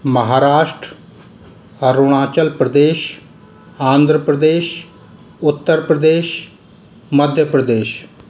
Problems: constant background noise